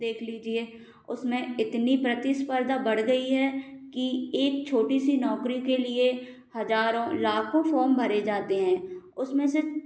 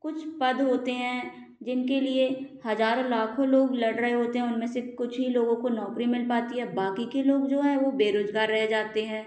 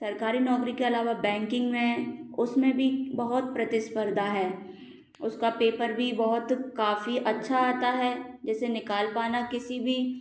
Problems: constant background noise